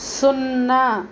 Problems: constant background noise